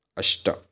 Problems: none marked